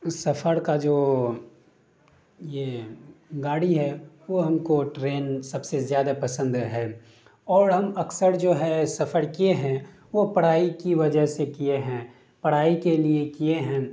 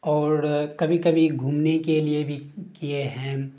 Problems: constant background noise